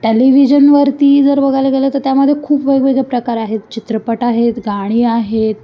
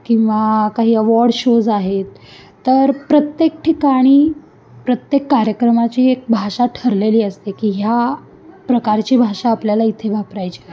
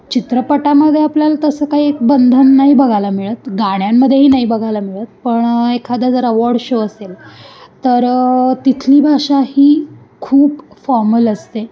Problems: constant background noise, background conversations at intervals